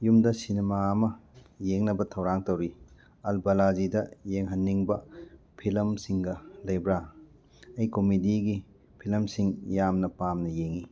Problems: none marked